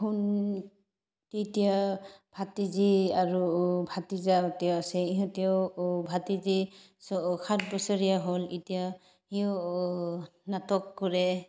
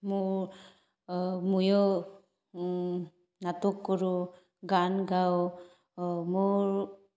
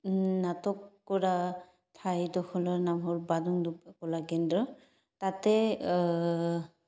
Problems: background sounds at intervals